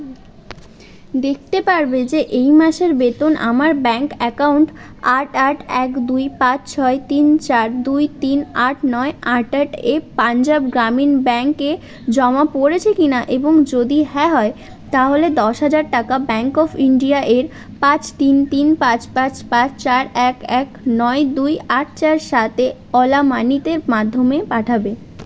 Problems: background sounds at intervals, background conversations at intervals